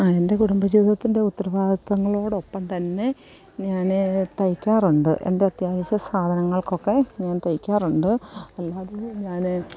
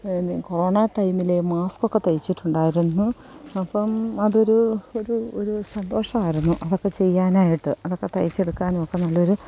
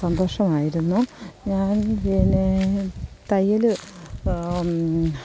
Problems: none marked